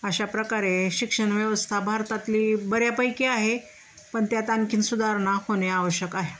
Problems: constant background noise, background conversations at intervals